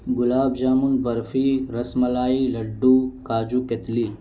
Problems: low volume